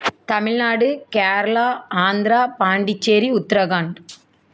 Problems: none marked